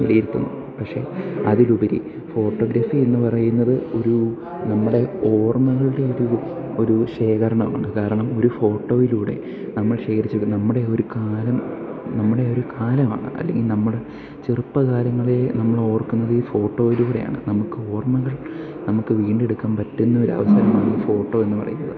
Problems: background sounds at intervals